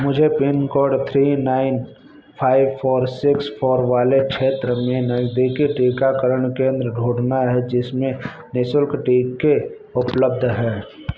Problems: background sounds at intervals